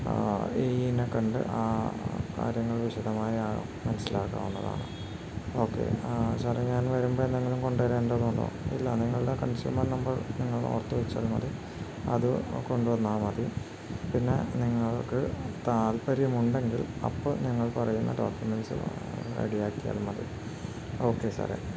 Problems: constant background noise